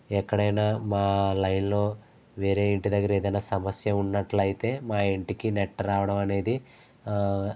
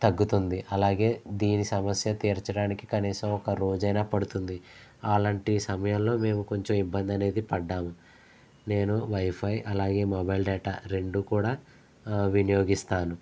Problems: constant background noise